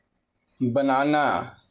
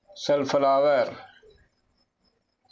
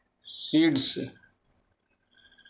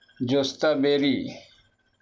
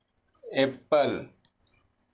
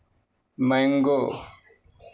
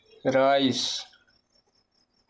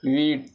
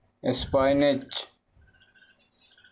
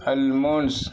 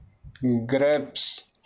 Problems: background sounds at intervals